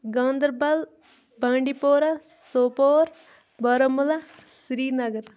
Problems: background sounds at intervals